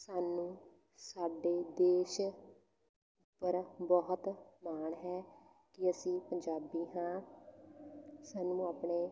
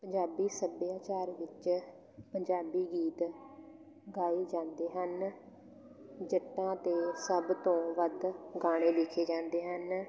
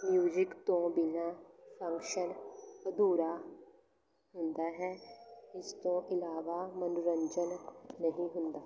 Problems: none marked